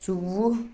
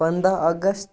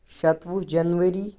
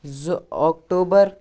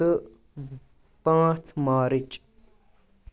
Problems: none marked